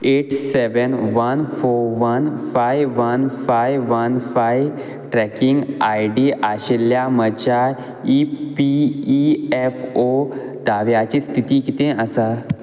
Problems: none marked